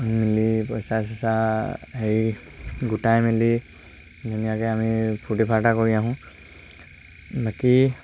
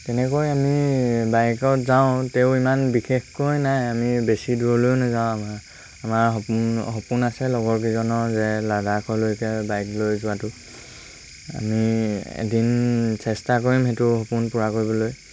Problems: constant background noise